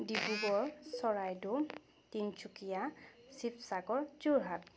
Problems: background sounds at intervals, background conversations at intervals